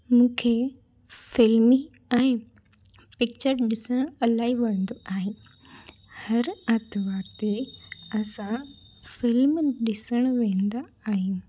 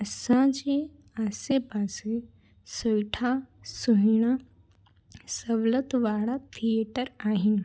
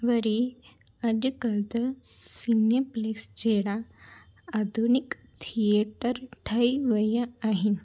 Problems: none marked